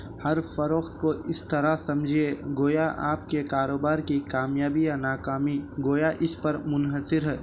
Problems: none marked